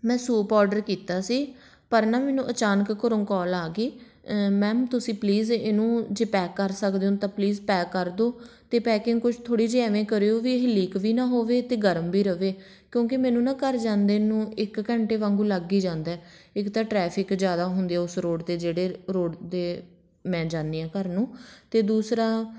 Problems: none marked